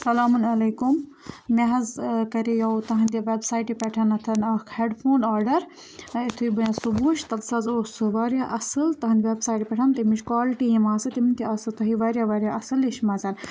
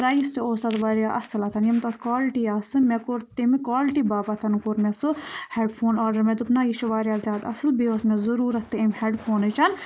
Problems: background sounds at intervals